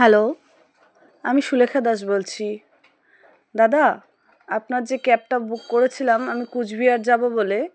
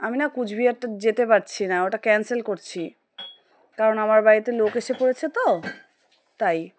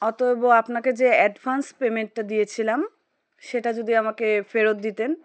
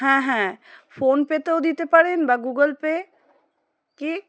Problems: background sounds at intervals